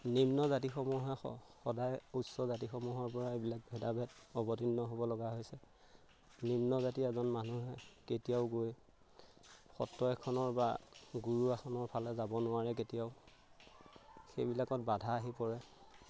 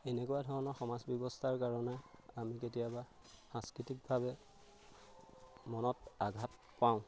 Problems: background sounds at intervals